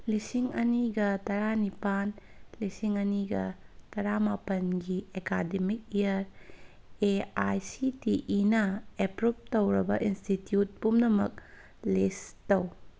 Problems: background sounds at intervals